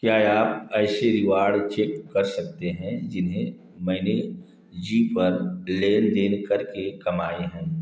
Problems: echo